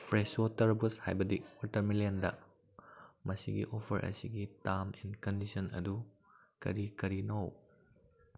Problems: background sounds at intervals